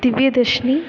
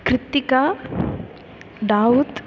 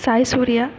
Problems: none marked